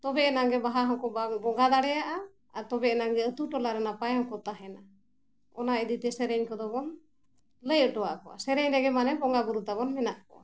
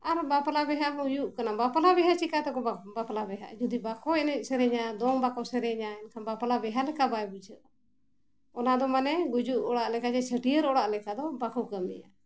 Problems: none marked